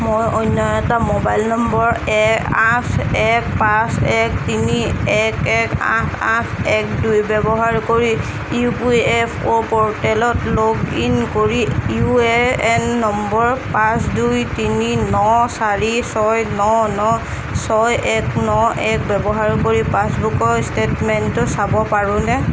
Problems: constant background noise